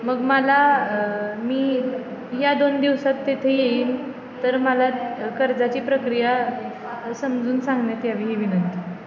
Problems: constant background noise, continuous background conversations